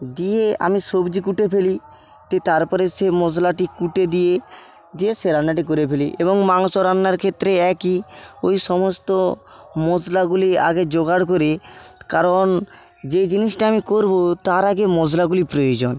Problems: constant background noise